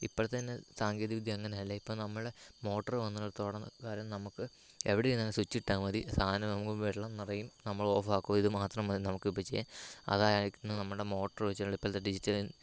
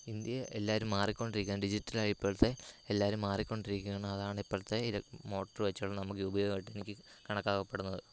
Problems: constant background noise, low volume